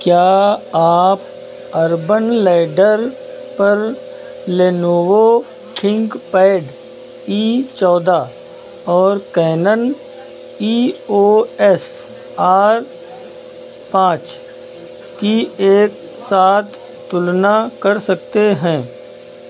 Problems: none marked